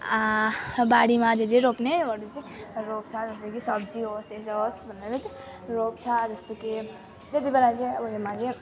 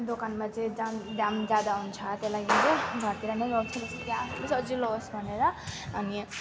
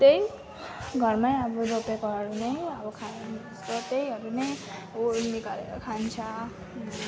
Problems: constant background noise